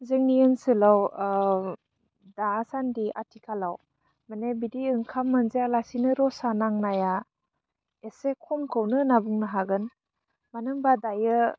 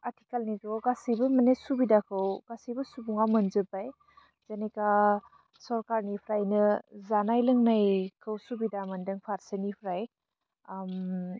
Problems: low volume